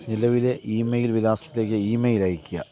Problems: constant background noise, low volume